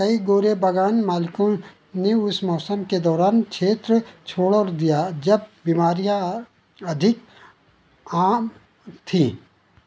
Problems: background sounds at intervals